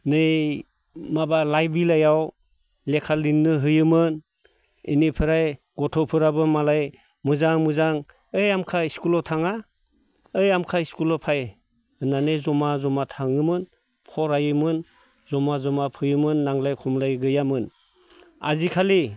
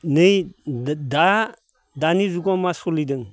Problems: none marked